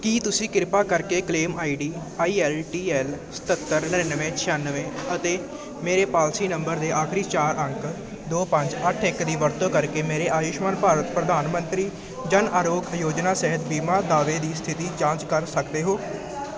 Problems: constant background noise